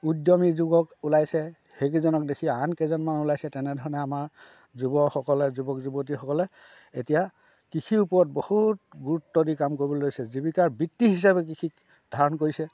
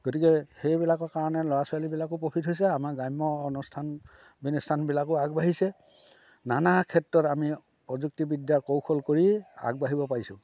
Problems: background conversations at intervals